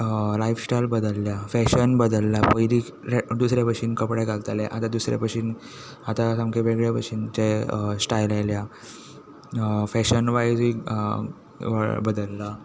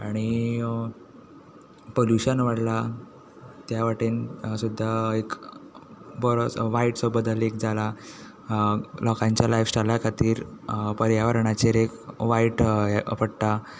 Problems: none marked